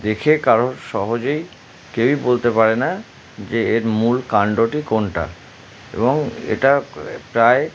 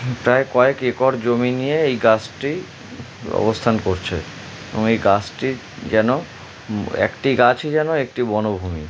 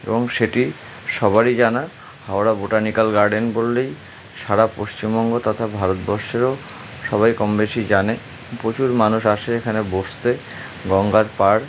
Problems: constant background noise